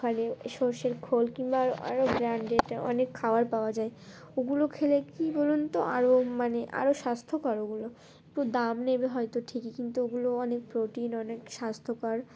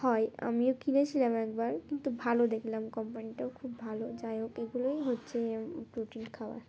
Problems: constant background noise, continuous background conversations